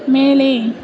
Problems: constant background noise, continuous background conversations